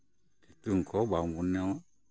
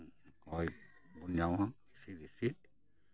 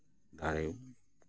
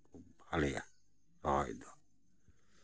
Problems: background sounds at intervals, background conversations at intervals